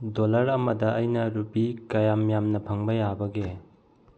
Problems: low volume